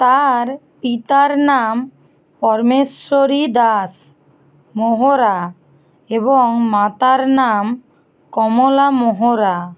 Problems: constant background noise